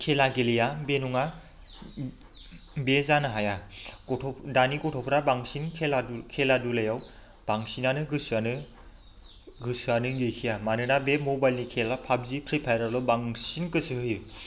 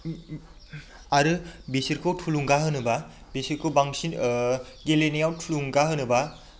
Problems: constant background noise